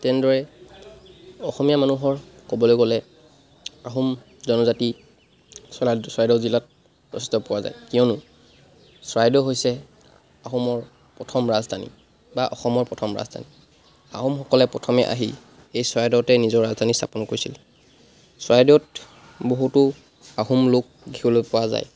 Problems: constant background noise